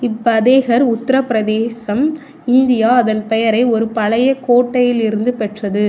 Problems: constant background noise